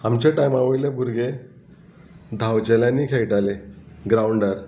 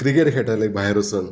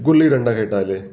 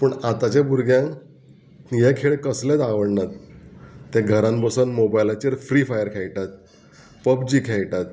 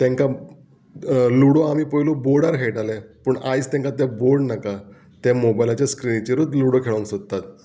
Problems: background sounds at intervals